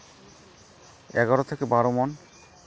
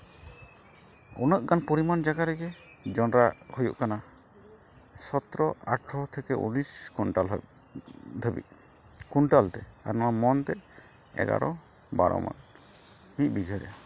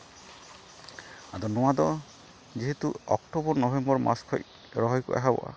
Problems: constant background noise